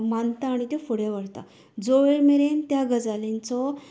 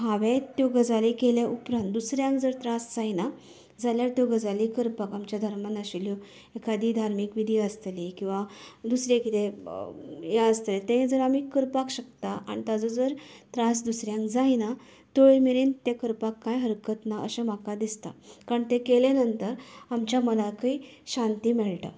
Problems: none marked